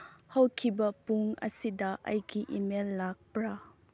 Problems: low volume